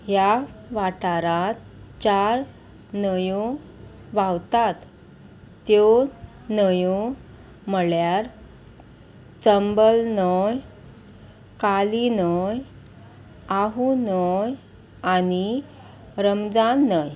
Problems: constant background noise